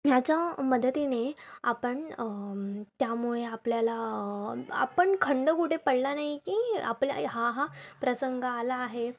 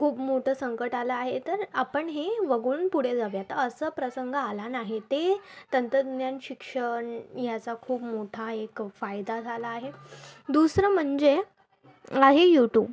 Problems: none marked